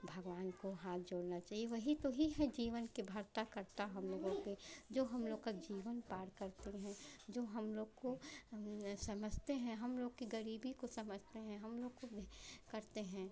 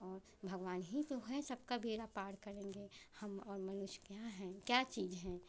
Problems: none marked